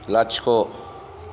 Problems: background sounds at intervals